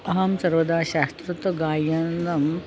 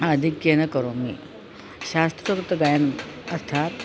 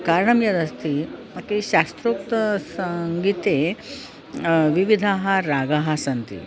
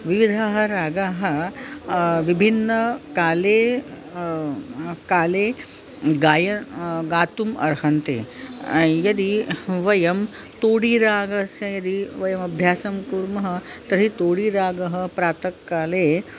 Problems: constant background noise, background conversations at intervals